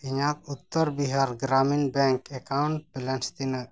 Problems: none marked